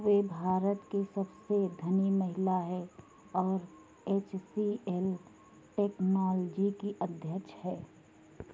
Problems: constant background noise